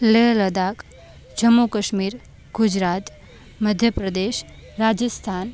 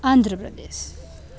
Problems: constant background noise